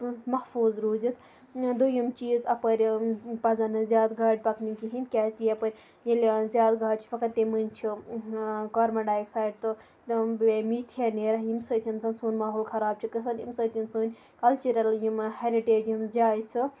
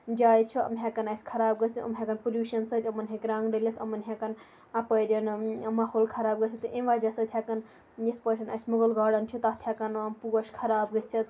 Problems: constant background noise